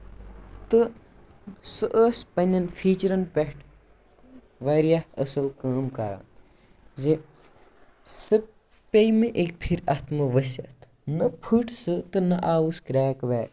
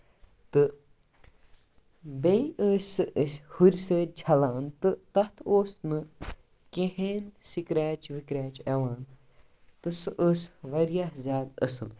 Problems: background sounds at intervals